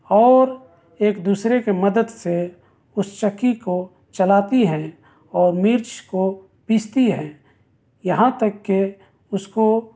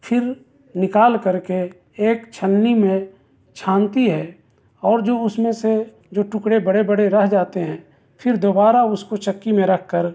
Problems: none marked